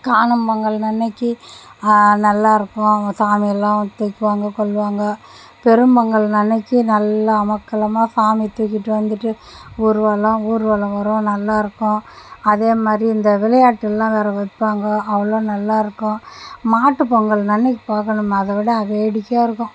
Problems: none marked